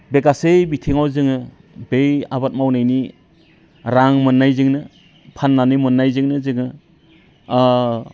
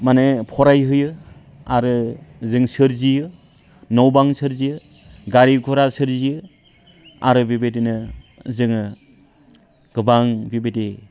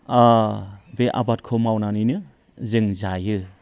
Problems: background conversations at intervals